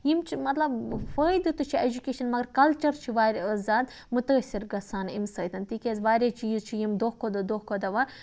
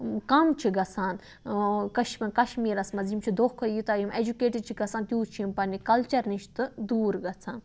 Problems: background sounds at intervals